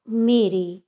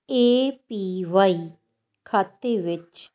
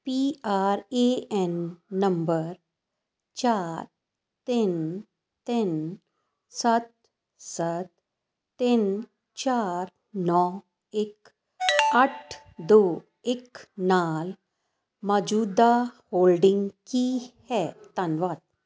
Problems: background sounds at intervals